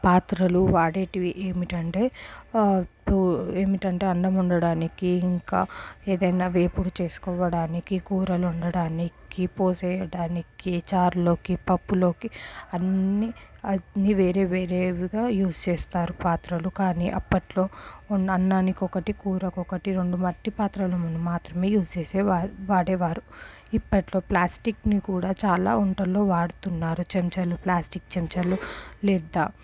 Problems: none marked